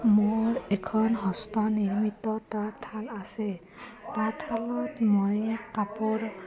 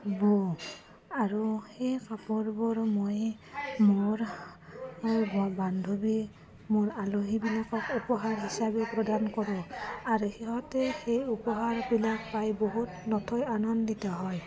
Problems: none marked